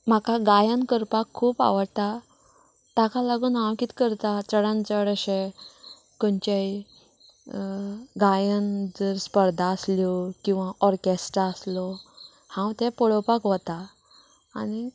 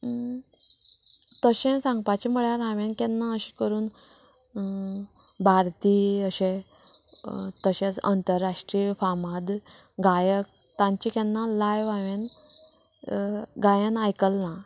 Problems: background conversations at intervals